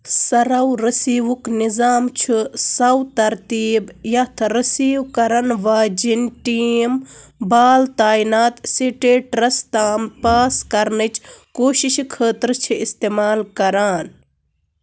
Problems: constant background noise